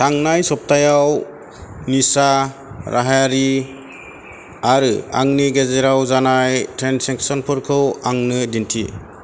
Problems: constant background noise